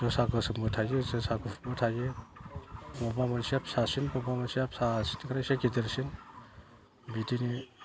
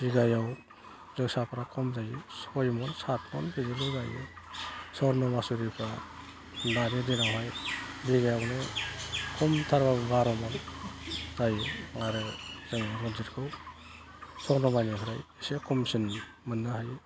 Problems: constant background noise, low volume